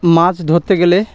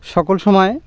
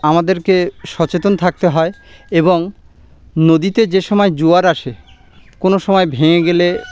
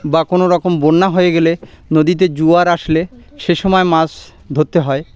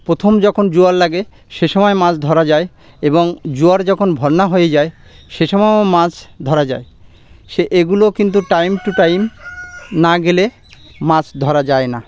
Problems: none marked